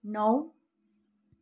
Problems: none marked